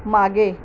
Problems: constant background noise